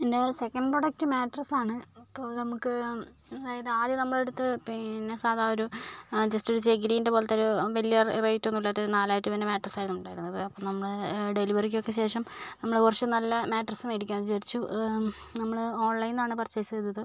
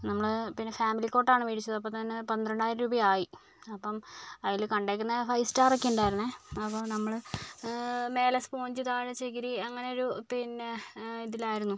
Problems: low volume